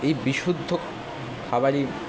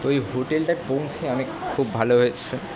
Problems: constant background noise, background conversations at intervals